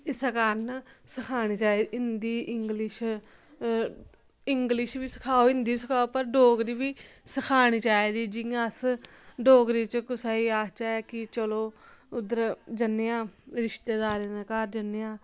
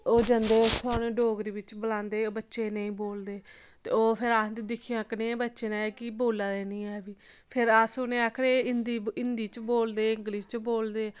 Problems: none marked